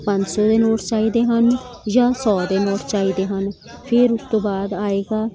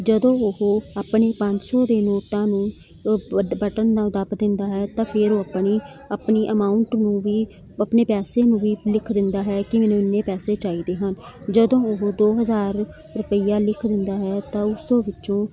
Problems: none marked